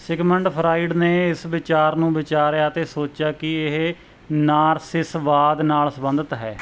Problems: none marked